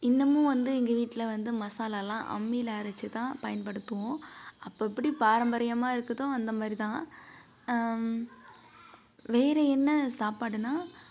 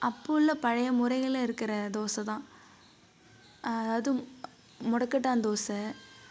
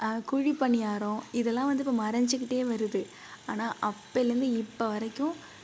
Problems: background sounds at intervals, low volume